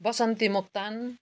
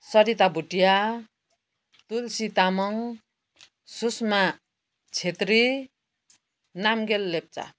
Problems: constant background noise